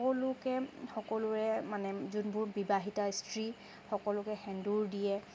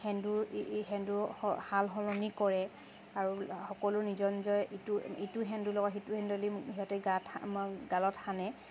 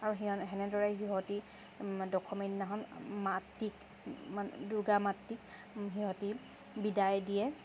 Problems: constant background noise, background conversations at intervals